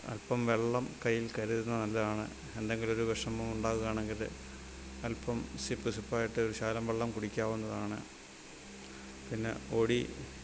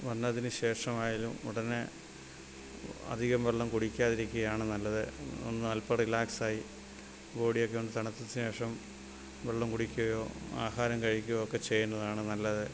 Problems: constant background noise, low volume